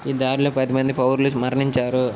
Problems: constant background noise